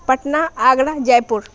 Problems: constant background noise